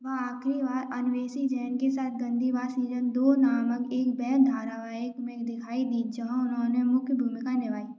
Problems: low volume